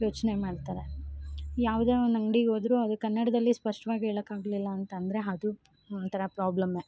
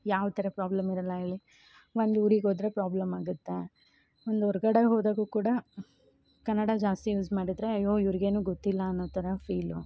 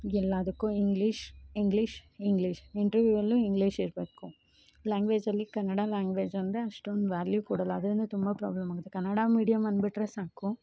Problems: none marked